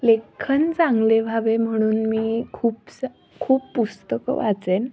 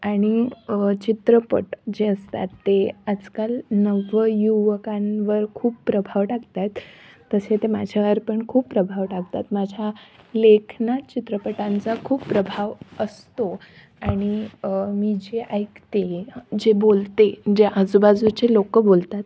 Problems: none marked